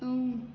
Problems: constant background noise